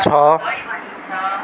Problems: constant background noise